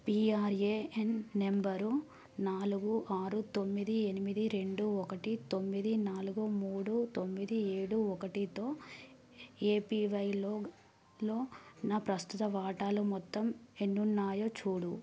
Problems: low volume